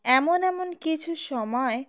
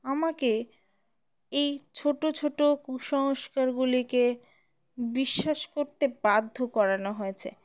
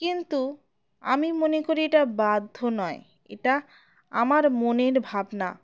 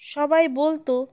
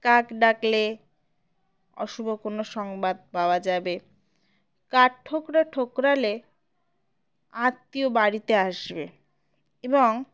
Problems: background sounds at intervals